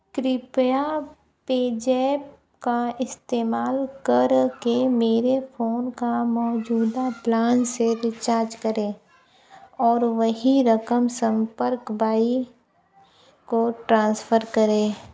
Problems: background conversations at intervals, low volume